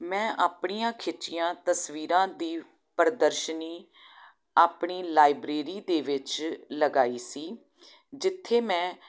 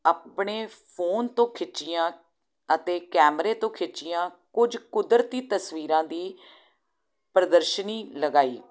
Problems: none marked